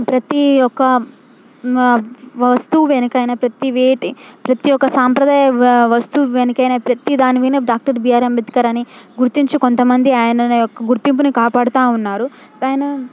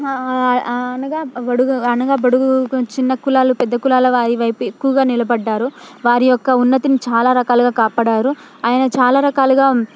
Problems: background sounds at intervals